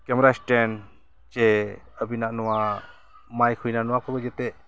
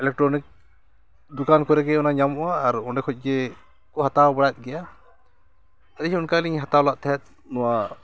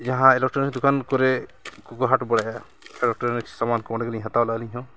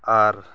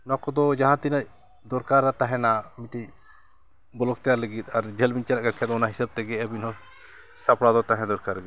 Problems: background sounds at intervals, continuous background conversations